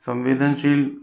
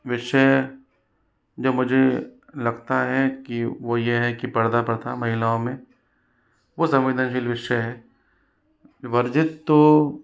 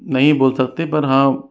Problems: background sounds at intervals